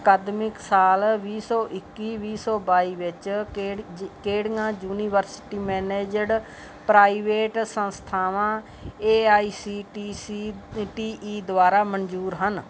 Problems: none marked